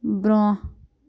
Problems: none marked